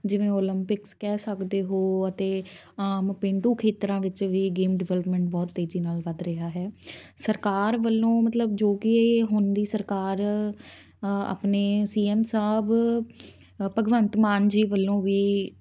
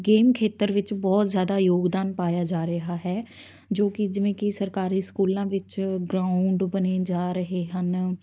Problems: none marked